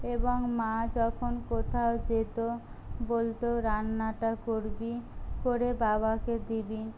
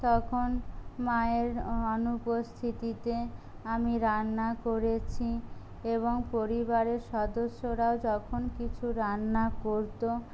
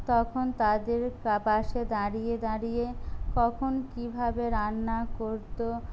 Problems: low volume